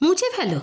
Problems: continuous background conversations